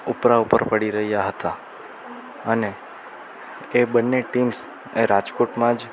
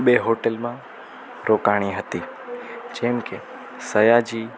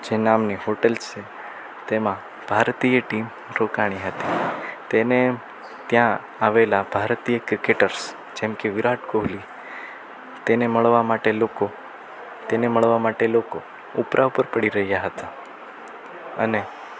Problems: constant background noise